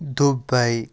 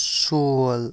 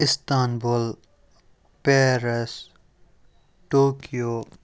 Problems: none marked